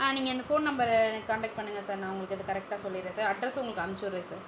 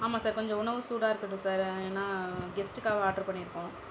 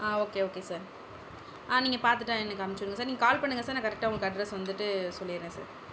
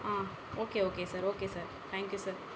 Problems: background sounds at intervals